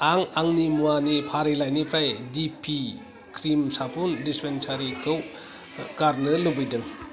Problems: continuous background conversations